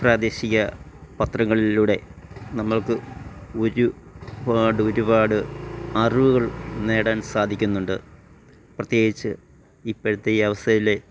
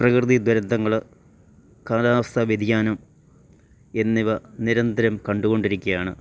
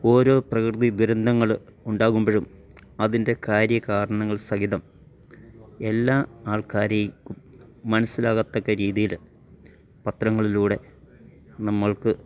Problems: none marked